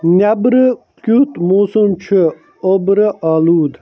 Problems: constant background noise